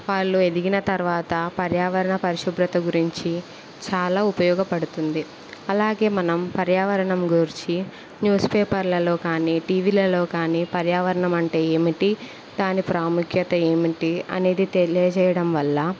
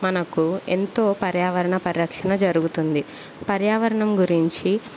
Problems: constant background noise